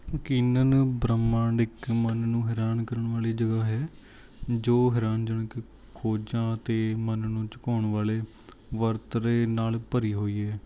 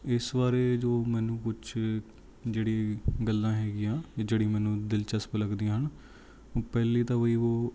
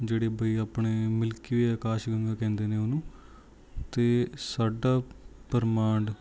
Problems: none marked